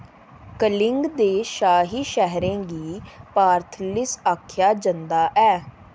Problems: constant background noise